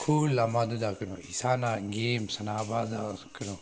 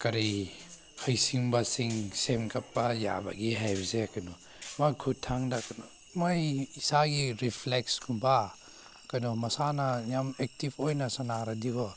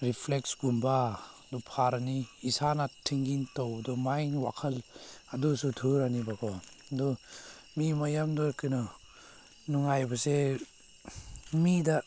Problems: background sounds at intervals